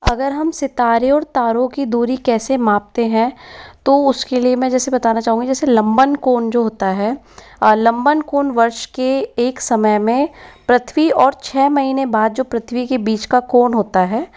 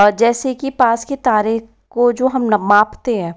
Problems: none marked